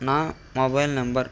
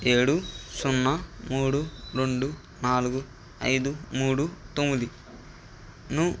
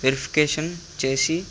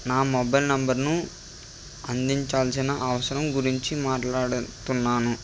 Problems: none marked